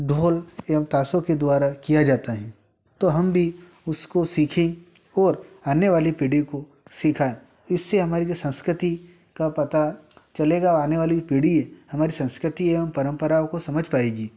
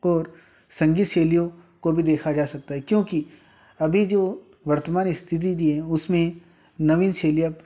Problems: constant background noise